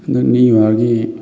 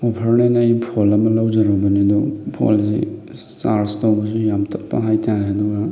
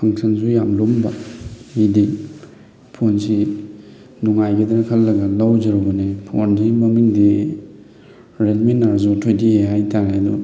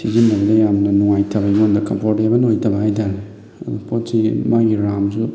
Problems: constant background noise, background conversations at intervals